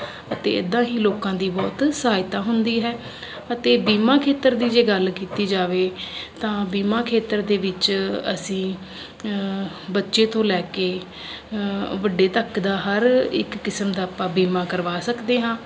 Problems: none marked